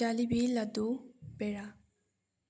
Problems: low volume